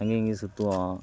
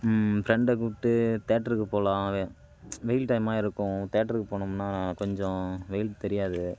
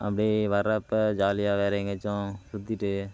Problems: none marked